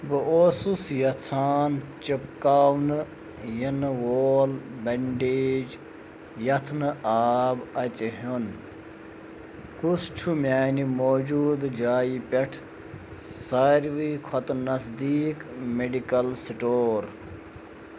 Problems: constant background noise